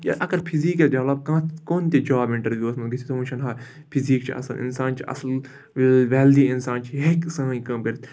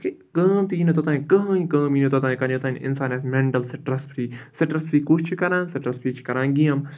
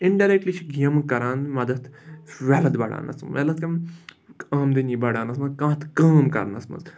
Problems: background sounds at intervals